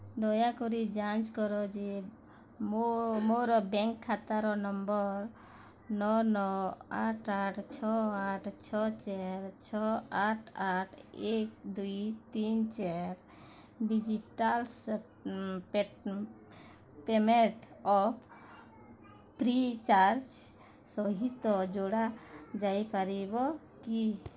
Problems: constant background noise, continuous background conversations